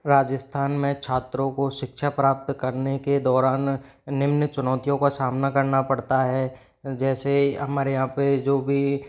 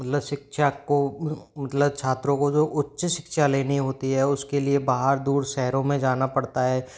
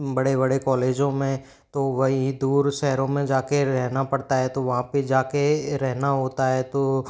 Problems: background sounds at intervals